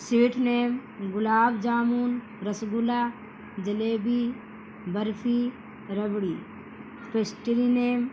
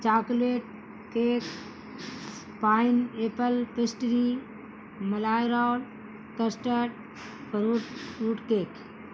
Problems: constant background noise